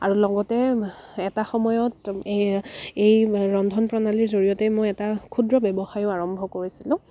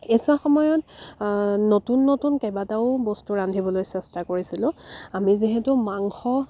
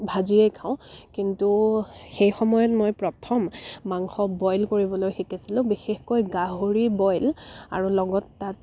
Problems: constant background noise